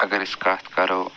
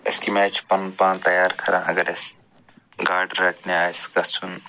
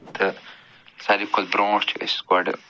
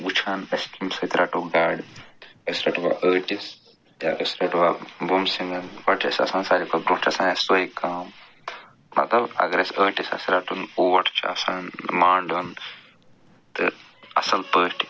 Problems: background sounds at intervals